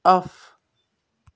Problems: none marked